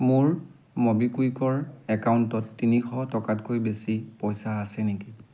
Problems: constant background noise